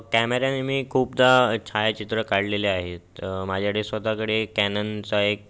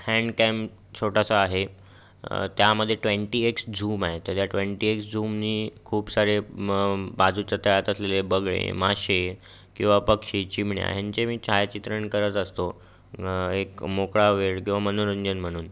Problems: background sounds at intervals